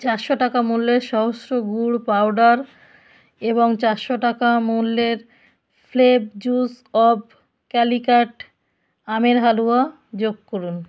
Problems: background sounds at intervals